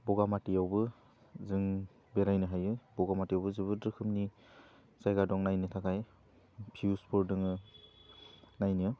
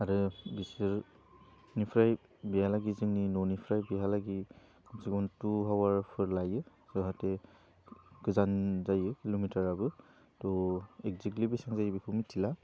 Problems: low volume